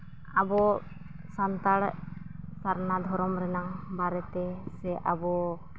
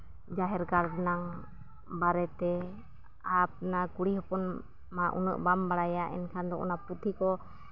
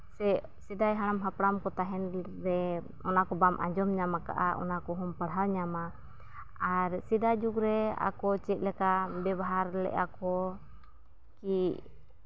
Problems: background sounds at intervals, low volume